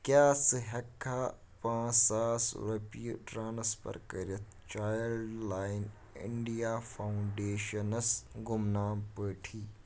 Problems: background sounds at intervals